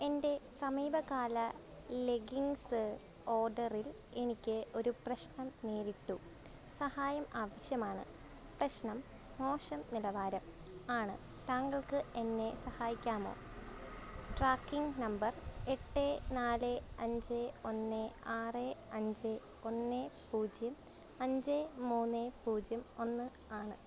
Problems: low volume